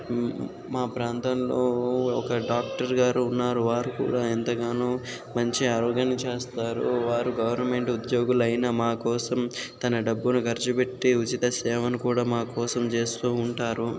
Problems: constant background noise